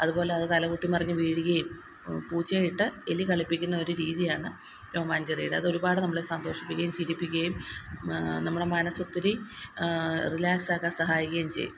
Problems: constant background noise